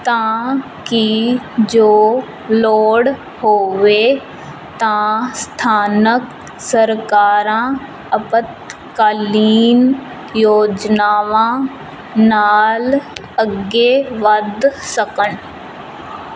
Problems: constant background noise